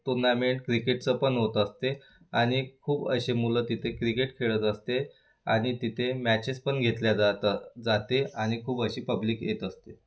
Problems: none marked